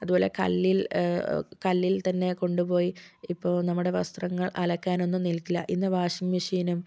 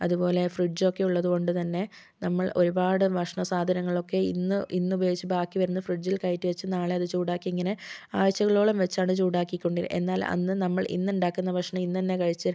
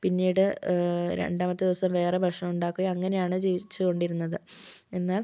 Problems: none marked